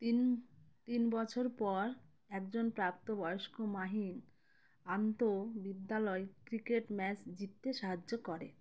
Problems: none marked